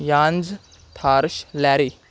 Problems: background sounds at intervals